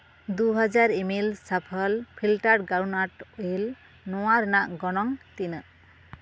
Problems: none marked